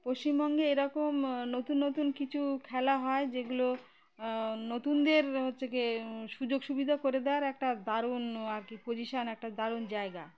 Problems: constant background noise, continuous background conversations